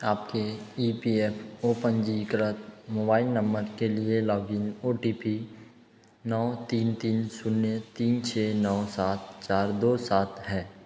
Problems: echo